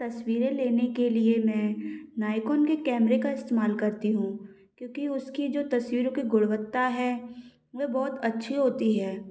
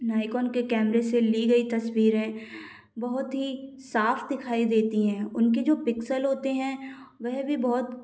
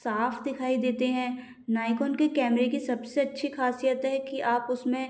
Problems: background sounds at intervals